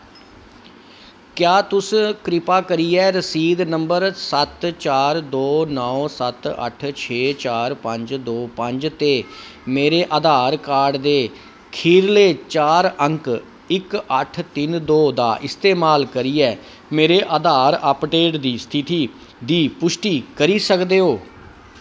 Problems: constant background noise